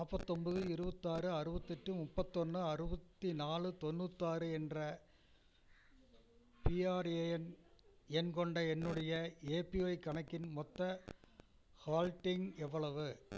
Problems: background sounds at intervals